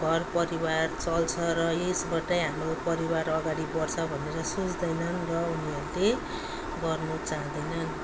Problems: none marked